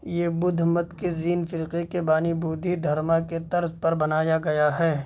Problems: constant background noise